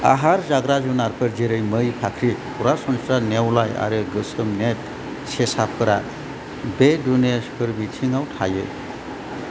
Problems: constant background noise